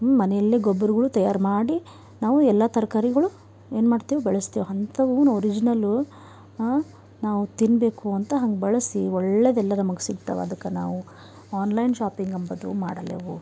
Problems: none marked